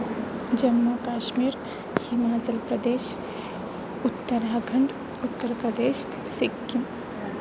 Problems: constant background noise